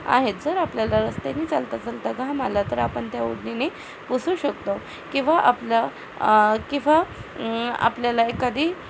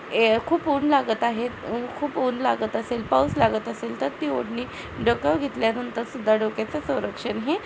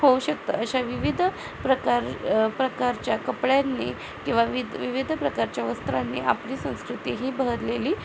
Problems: constant background noise, background conversations at intervals